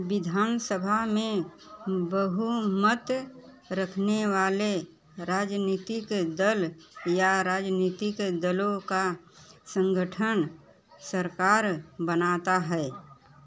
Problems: none marked